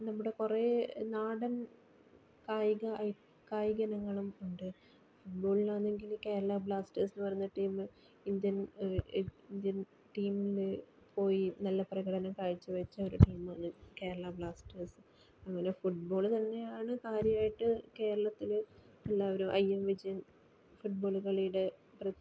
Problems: low volume